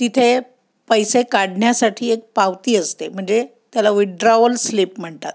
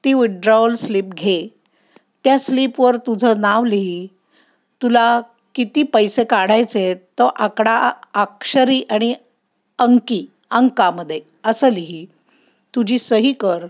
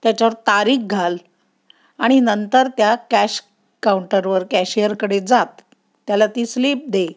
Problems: none marked